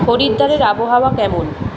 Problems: continuous background conversations